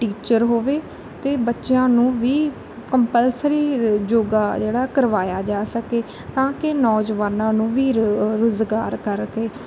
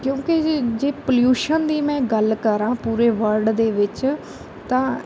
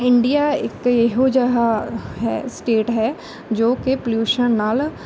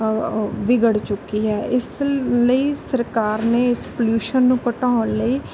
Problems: constant background noise